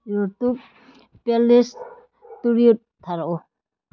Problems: low volume